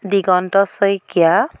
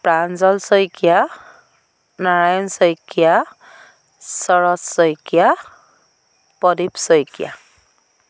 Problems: constant background noise